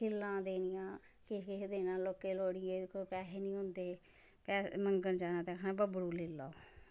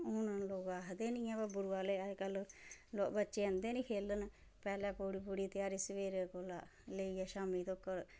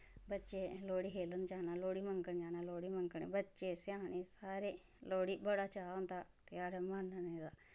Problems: background sounds at intervals, low volume